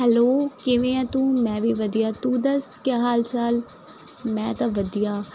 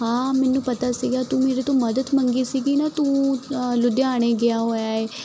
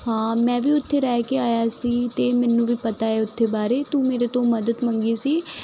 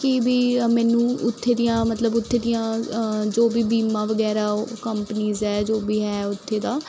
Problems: none marked